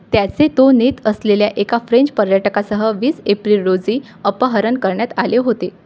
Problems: none marked